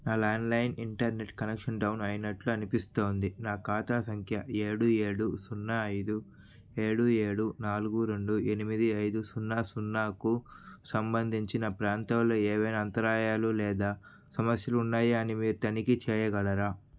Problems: none marked